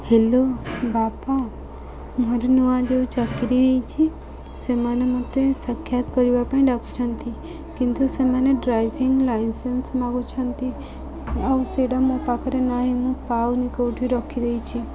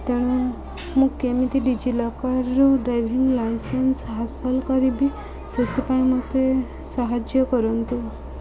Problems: constant background noise, continuous background conversations